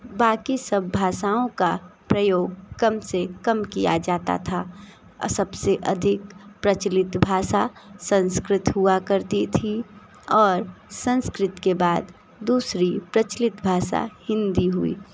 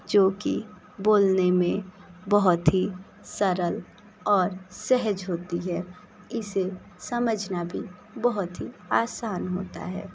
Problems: constant background noise